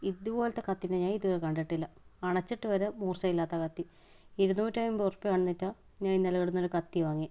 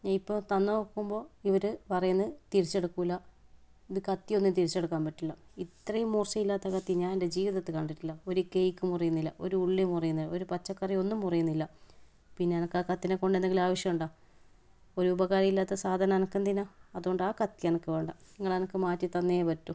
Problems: none marked